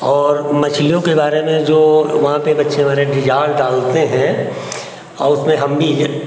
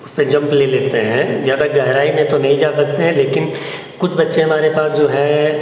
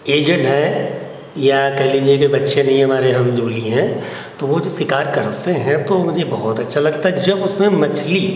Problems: constant background noise